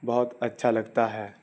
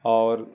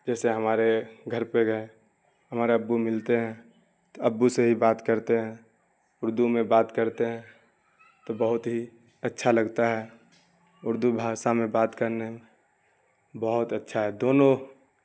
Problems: constant background noise